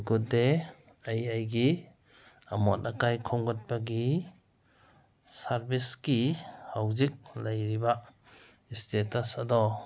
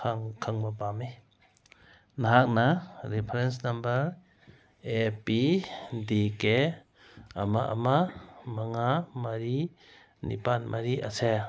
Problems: background sounds at intervals